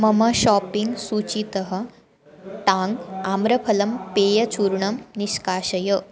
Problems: constant background noise